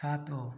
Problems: low volume